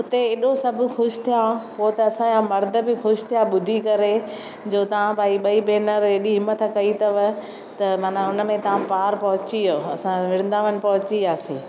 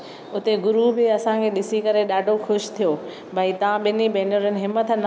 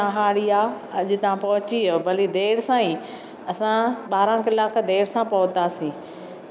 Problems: none marked